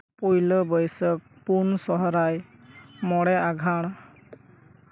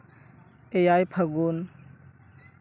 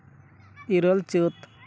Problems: constant background noise